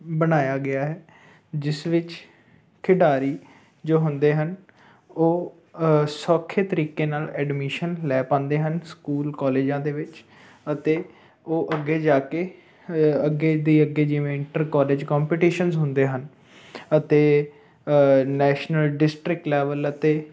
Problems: none marked